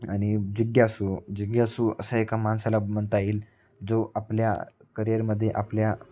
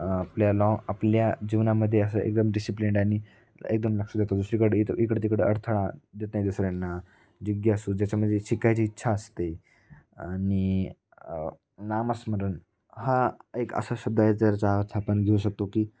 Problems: none marked